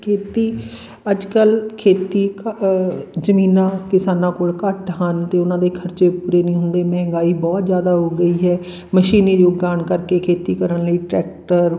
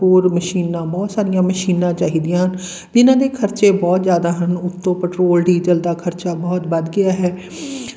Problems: constant background noise